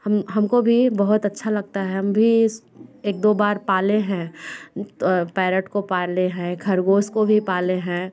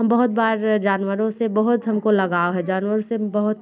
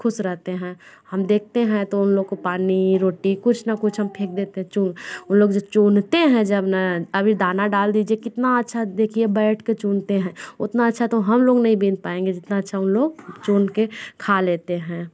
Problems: none marked